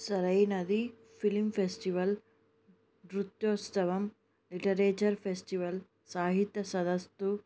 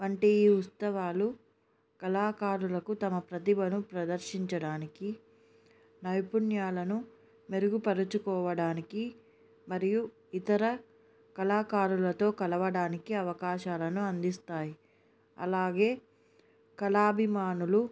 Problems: none marked